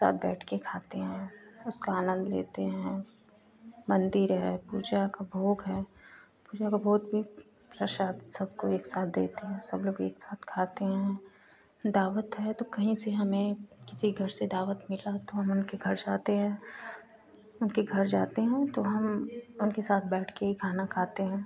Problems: constant background noise